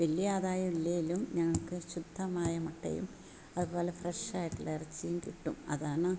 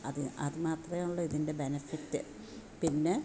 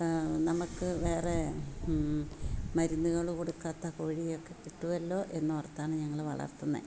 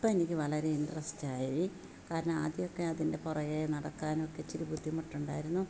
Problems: none marked